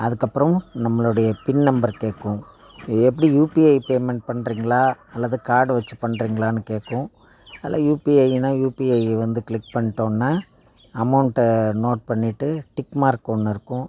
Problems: background sounds at intervals